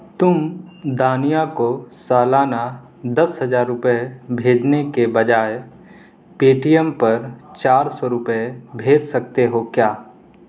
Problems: constant background noise